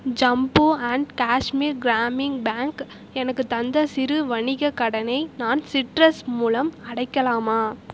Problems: constant background noise